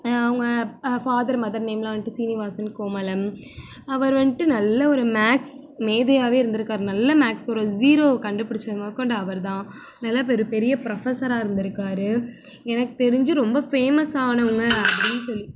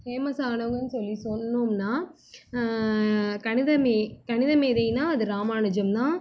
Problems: none marked